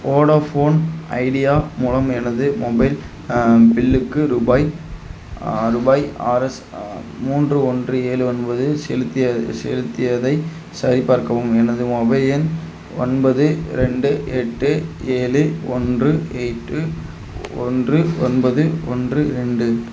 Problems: constant background noise